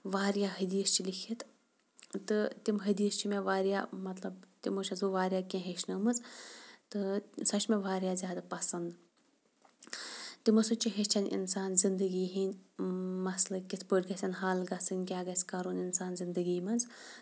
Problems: background sounds at intervals